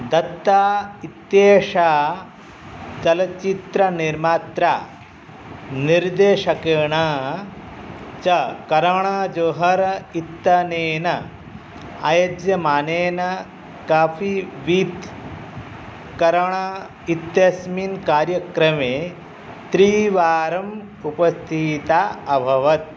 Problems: none marked